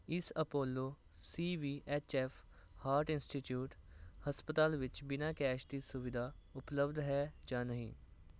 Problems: constant background noise